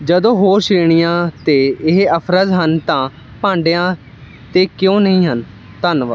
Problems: none marked